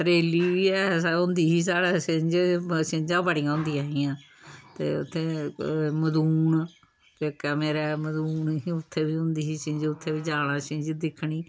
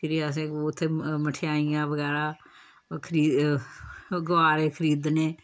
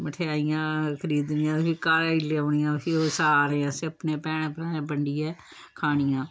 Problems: background sounds at intervals, background conversations at intervals